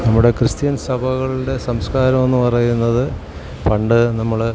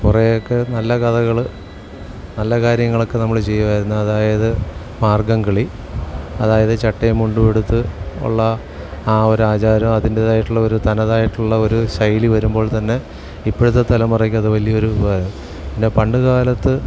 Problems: background sounds at intervals